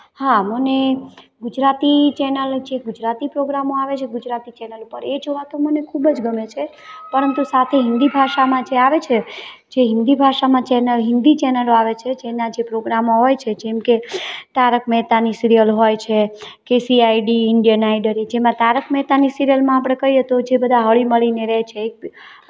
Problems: background sounds at intervals, background conversations at intervals